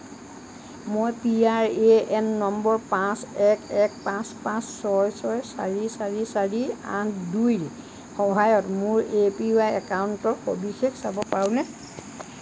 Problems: none marked